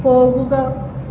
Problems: constant background noise